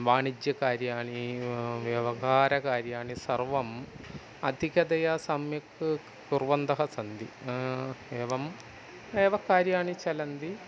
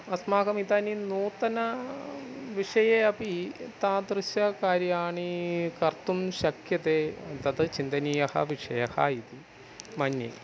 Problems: background sounds at intervals